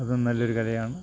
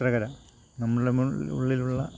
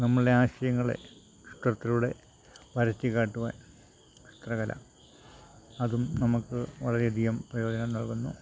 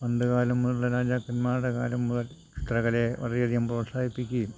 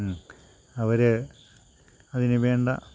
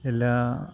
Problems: constant background noise, low volume